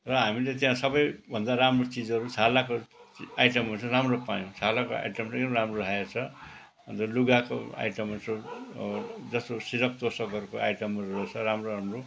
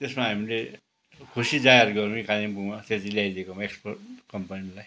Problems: background sounds at intervals